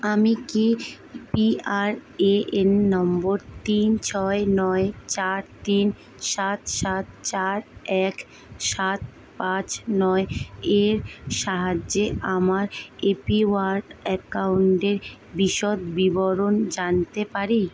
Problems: constant background noise